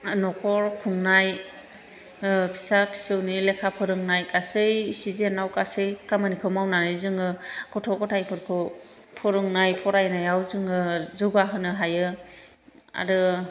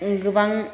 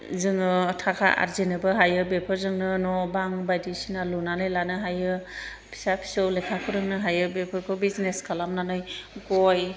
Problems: none marked